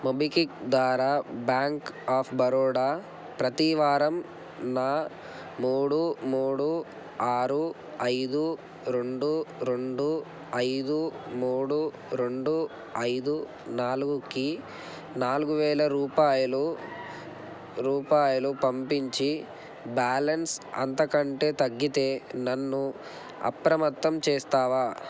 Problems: constant background noise